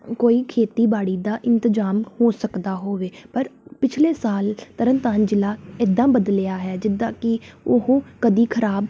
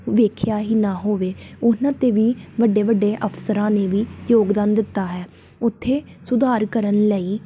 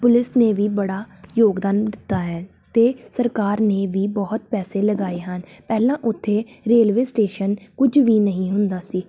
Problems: background sounds at intervals